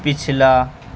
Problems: constant background noise